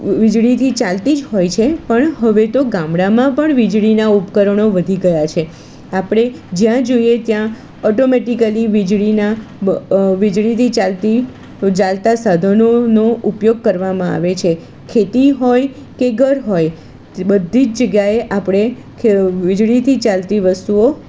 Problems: constant background noise